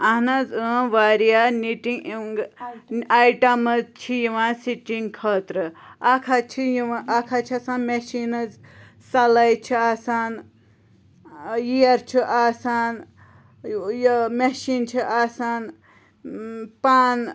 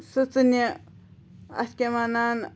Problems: constant background noise